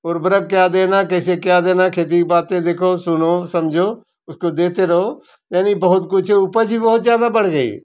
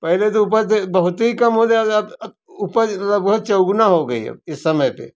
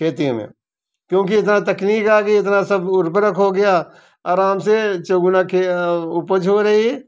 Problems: none marked